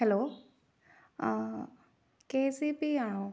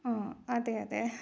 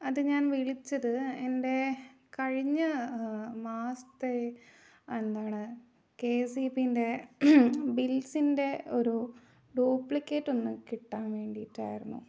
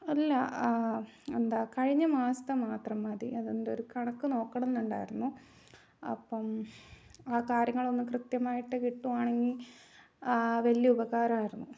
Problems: low volume